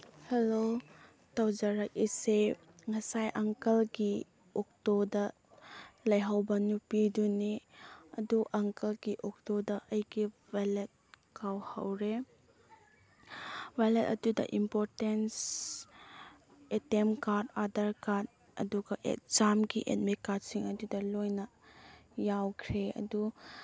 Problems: none marked